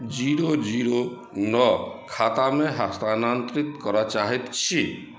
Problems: background sounds at intervals